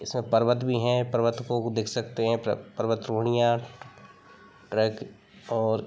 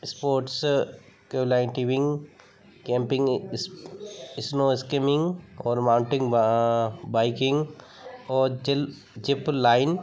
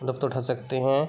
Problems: background sounds at intervals, background conversations at intervals